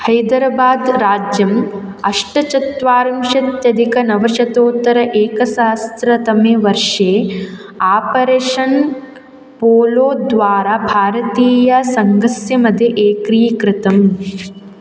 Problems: constant background noise